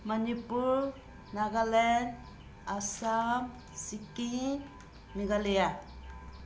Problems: constant background noise